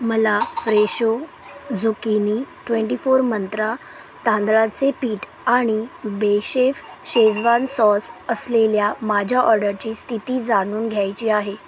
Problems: constant background noise